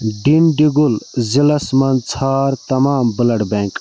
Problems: constant background noise